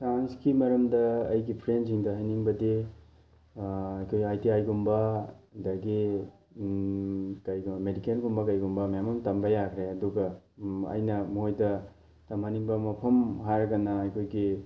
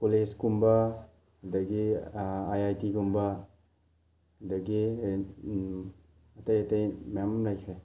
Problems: none marked